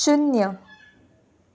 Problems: none marked